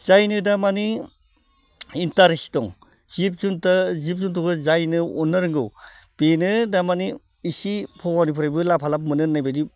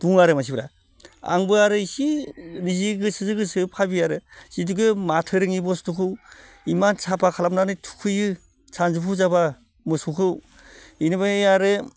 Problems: none marked